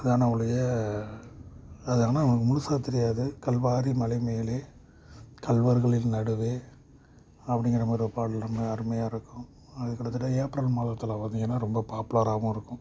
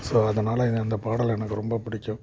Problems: constant background noise